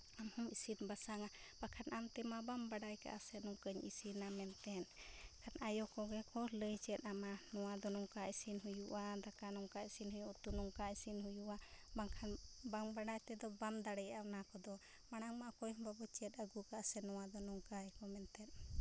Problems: low volume